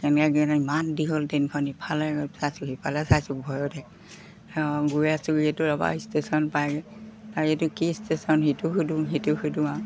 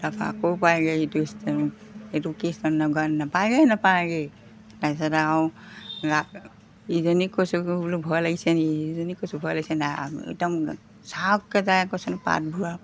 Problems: none marked